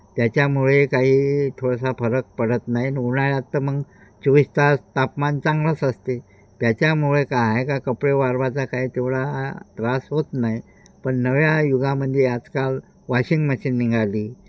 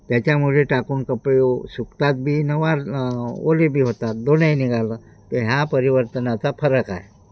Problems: constant background noise